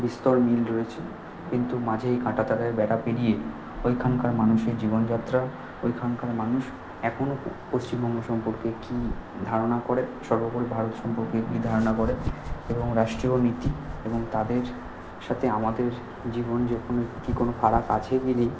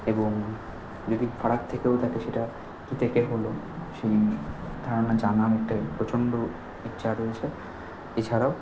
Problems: constant background noise